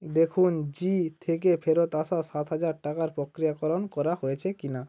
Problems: background sounds at intervals